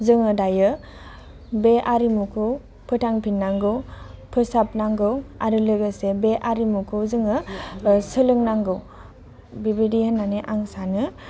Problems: constant background noise